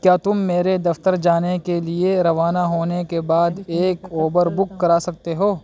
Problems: constant background noise